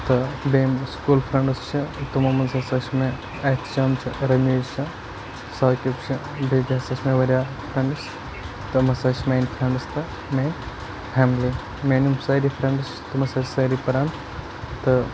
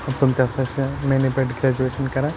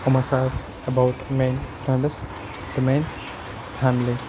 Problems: constant background noise